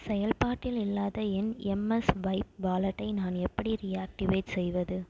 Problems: none marked